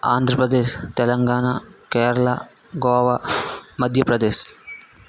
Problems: constant background noise